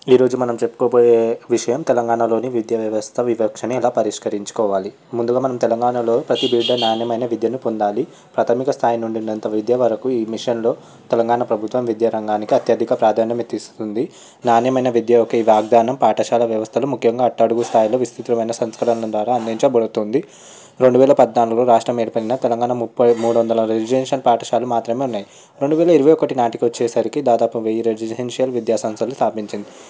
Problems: background sounds at intervals